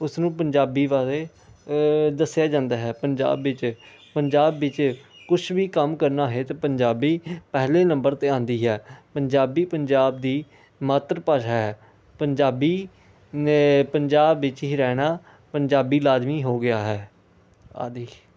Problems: constant background noise